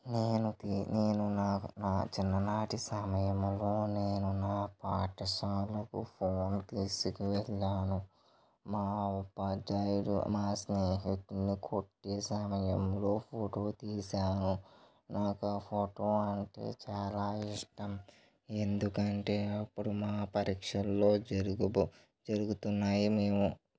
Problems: low volume